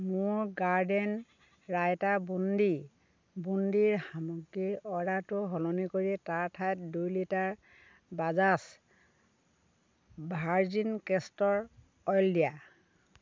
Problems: constant background noise